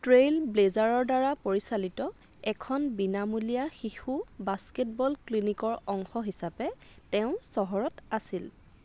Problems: constant background noise